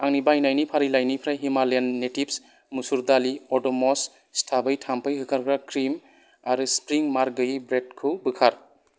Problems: none marked